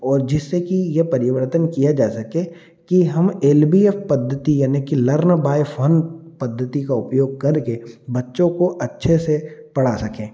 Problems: none marked